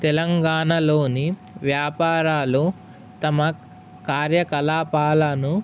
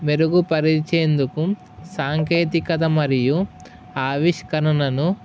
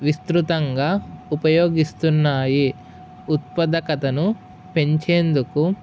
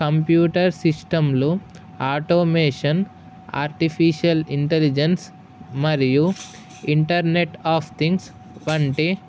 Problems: none marked